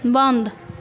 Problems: none marked